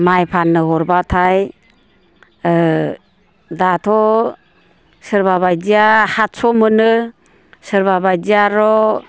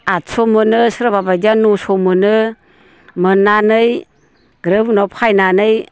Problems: constant background noise